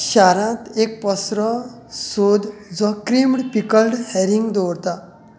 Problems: none marked